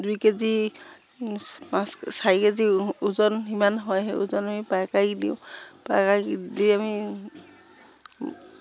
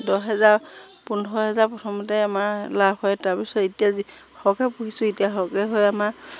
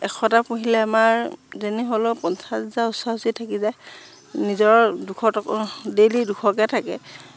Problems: low volume